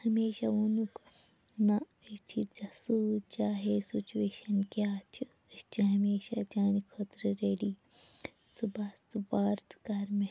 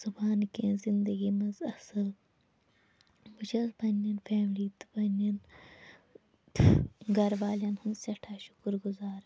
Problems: low volume